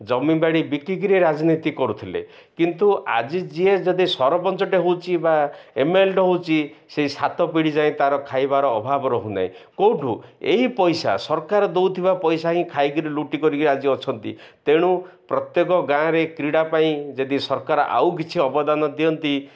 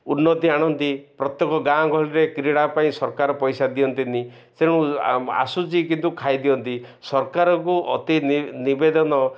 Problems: none marked